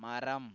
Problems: low volume